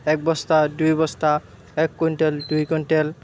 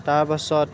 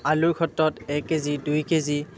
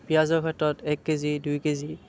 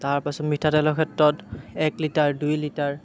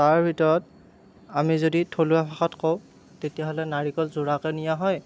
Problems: none marked